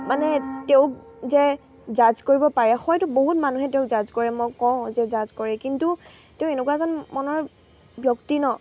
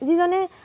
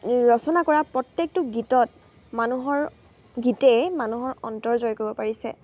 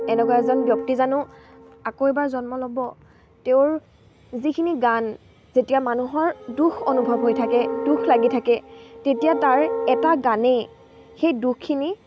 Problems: constant background noise, background conversations at intervals